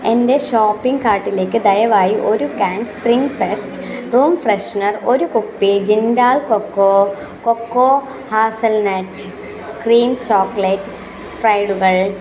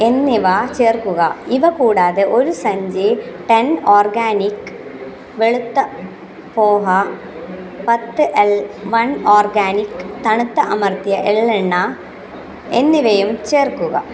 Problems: continuous background conversations